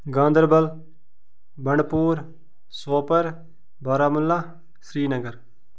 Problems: none marked